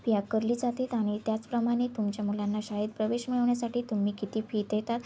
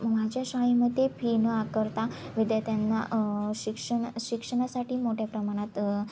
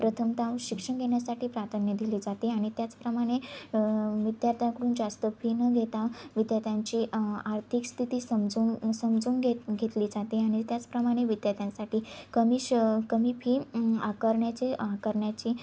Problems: constant background noise